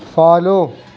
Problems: none marked